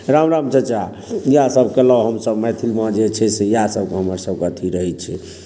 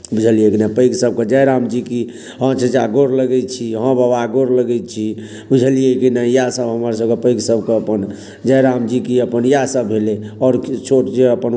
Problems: none marked